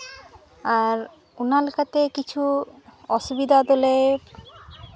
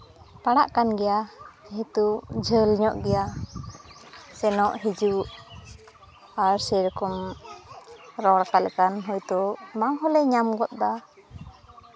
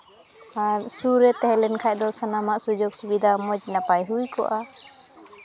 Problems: constant background noise, background conversations at intervals